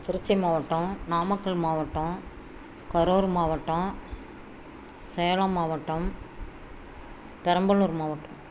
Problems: constant background noise